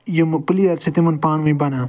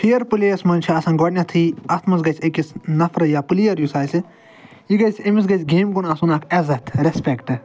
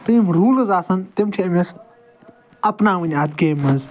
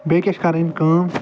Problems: background sounds at intervals